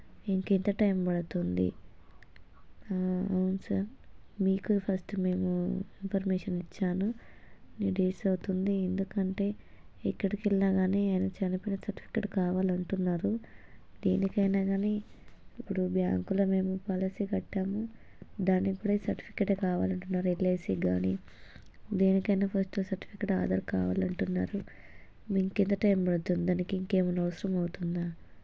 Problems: low volume